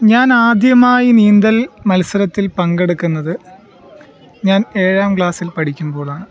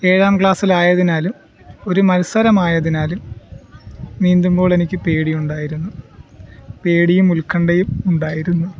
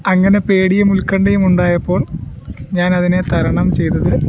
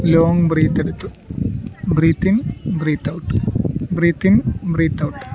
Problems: background sounds at intervals